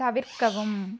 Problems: constant background noise